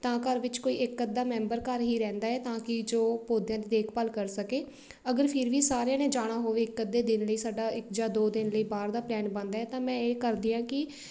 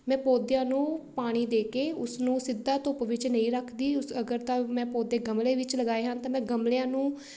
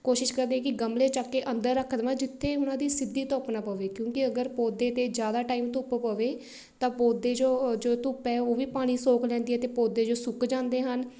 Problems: background sounds at intervals